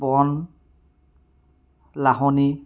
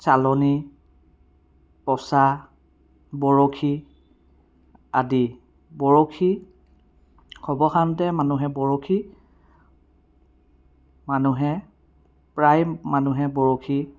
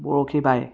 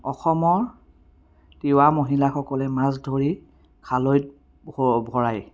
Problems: none marked